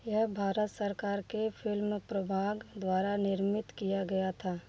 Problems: none marked